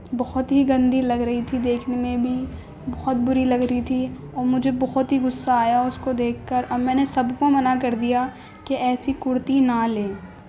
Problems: constant background noise